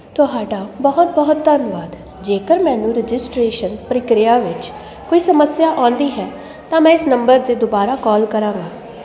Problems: constant background noise